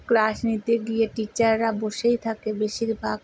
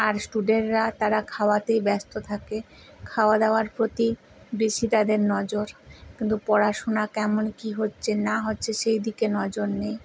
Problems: constant background noise